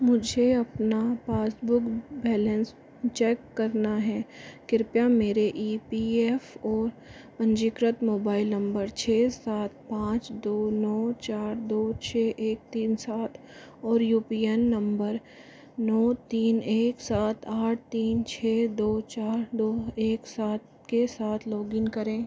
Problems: constant background noise, low volume